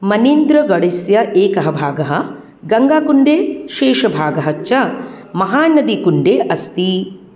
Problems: none marked